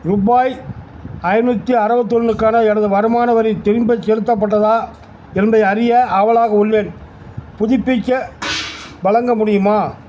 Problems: constant background noise